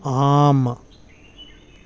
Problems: background sounds at intervals